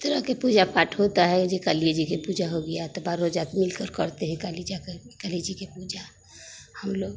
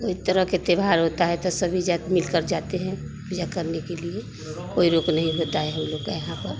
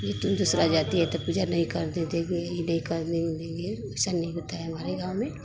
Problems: none marked